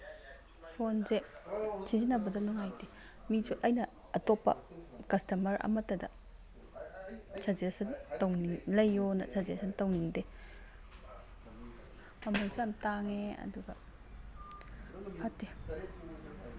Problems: background sounds at intervals